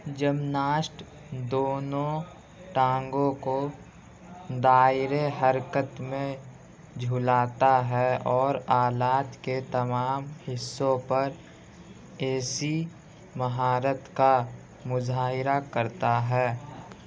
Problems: constant background noise, continuous background conversations